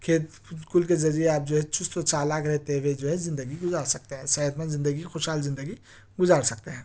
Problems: none marked